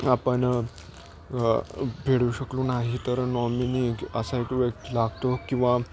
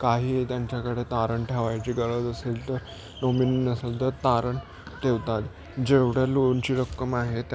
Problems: constant background noise